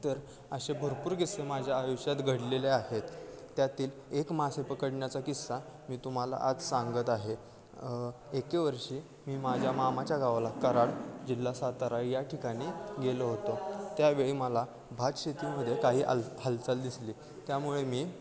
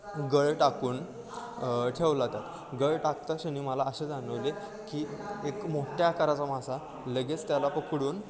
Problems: constant background noise, continuous background conversations